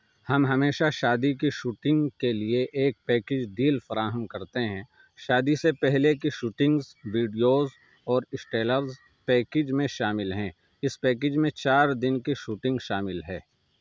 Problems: none marked